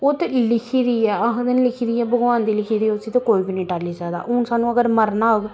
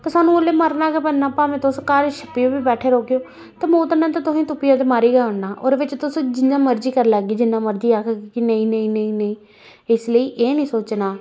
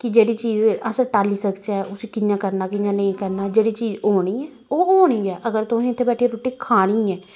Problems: constant background noise